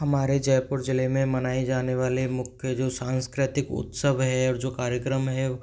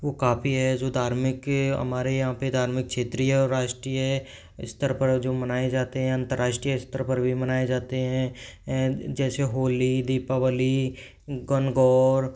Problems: background sounds at intervals